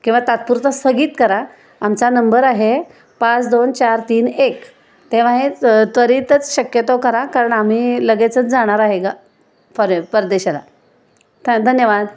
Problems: background sounds at intervals